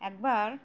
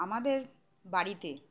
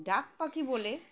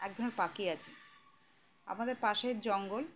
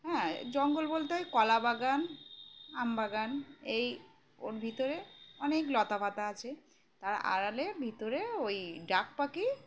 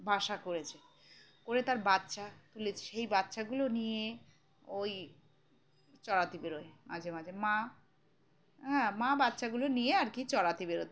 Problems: none marked